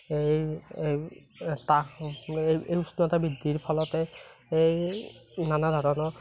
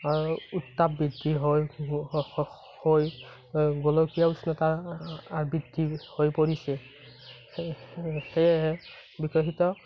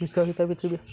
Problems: constant background noise